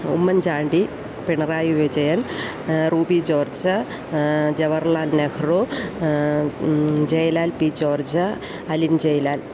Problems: constant background noise